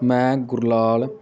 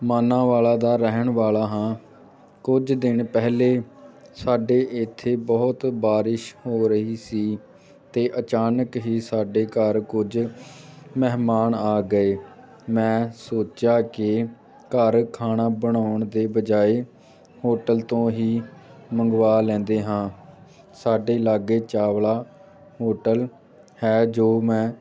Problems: none marked